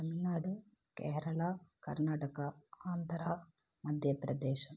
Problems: low volume